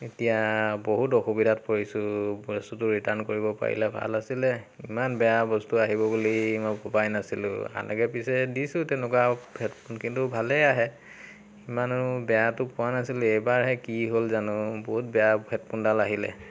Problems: constant background noise